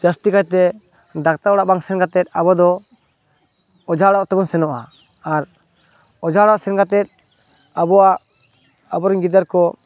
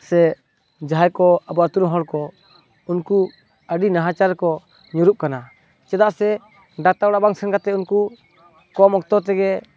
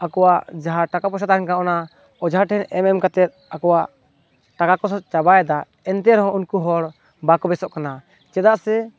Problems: constant background noise, continuous background conversations